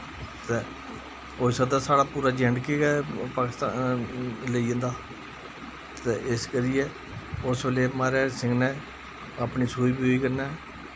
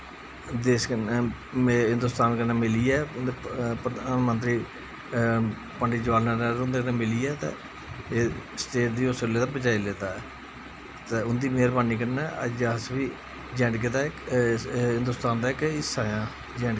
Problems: constant background noise